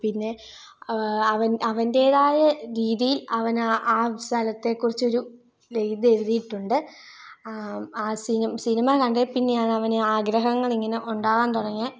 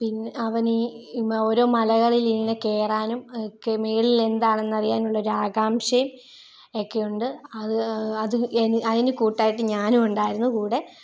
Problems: low volume